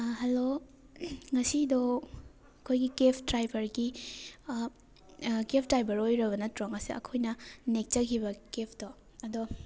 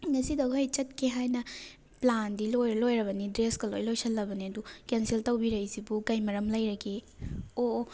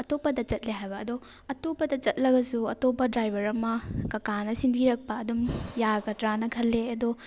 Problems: background sounds at intervals